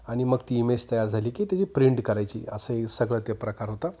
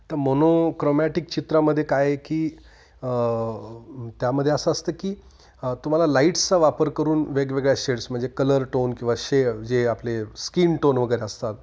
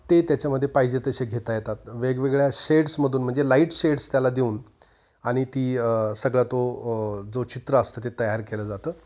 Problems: constant background noise, continuous background conversations